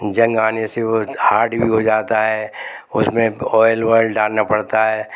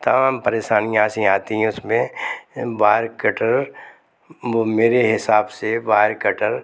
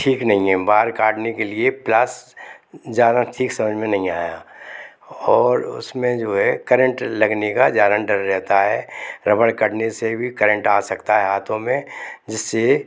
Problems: none marked